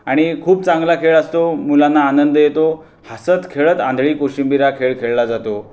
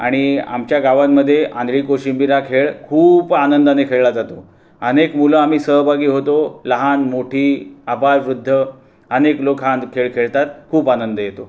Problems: background sounds at intervals